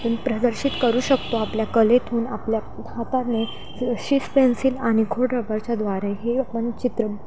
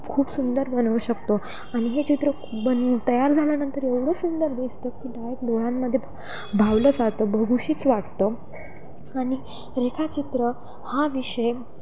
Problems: constant background noise, background conversations at intervals